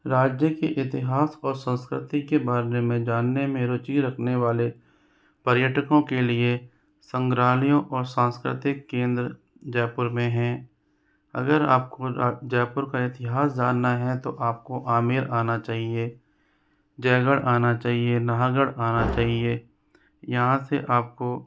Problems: background conversations at intervals